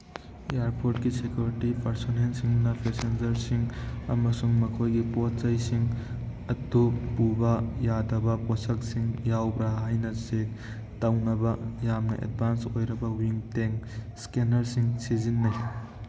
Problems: background sounds at intervals